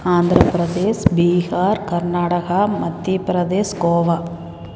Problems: none marked